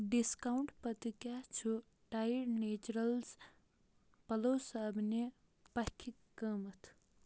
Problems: none marked